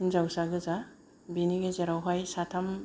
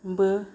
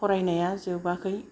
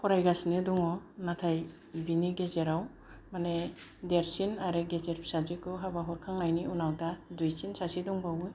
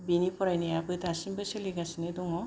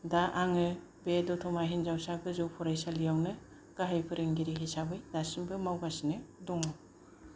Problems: none marked